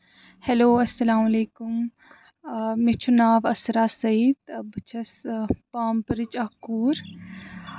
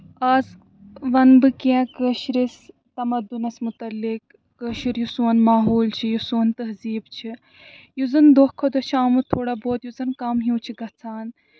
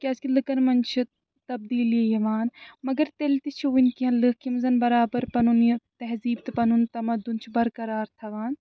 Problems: background sounds at intervals